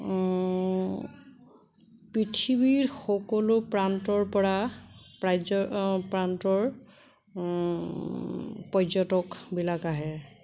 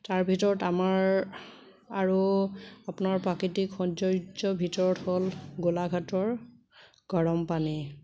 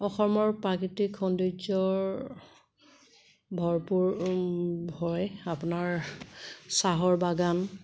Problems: constant background noise